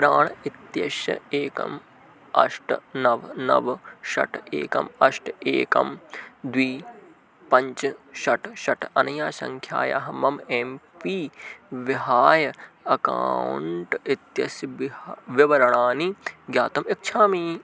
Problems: none marked